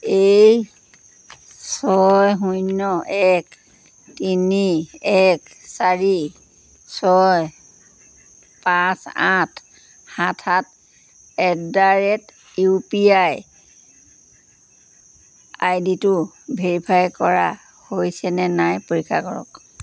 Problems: none marked